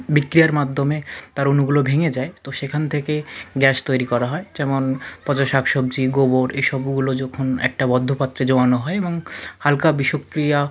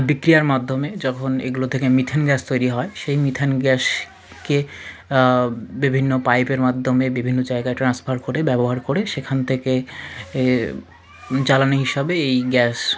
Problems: constant background noise, continuous background conversations